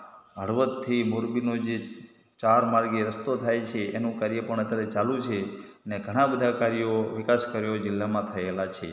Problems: background sounds at intervals, echo